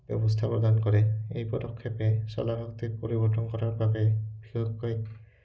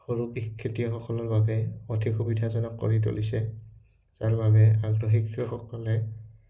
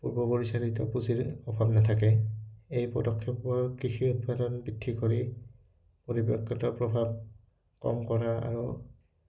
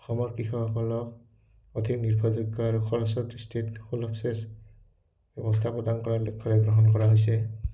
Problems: background sounds at intervals